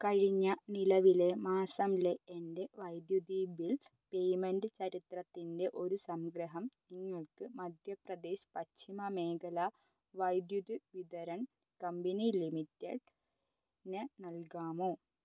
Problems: low volume